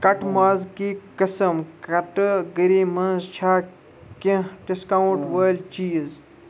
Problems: constant background noise, background conversations at intervals